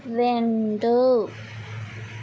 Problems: constant background noise